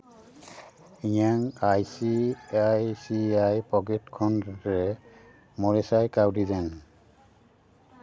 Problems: continuous background conversations